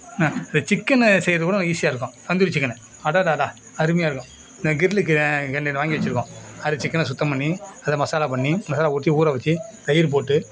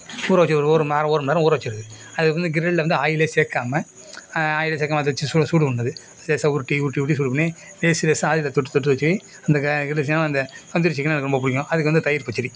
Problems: background sounds at intervals